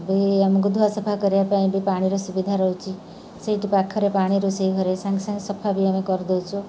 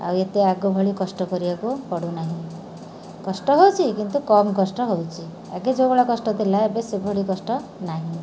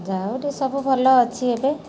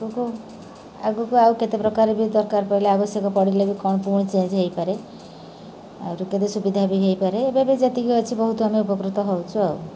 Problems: none marked